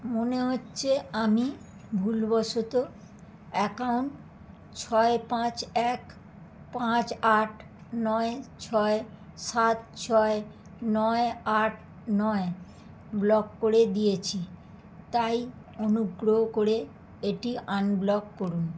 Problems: background sounds at intervals